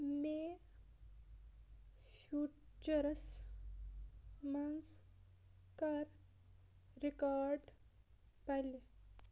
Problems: low volume